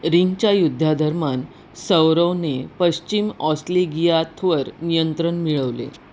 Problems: none marked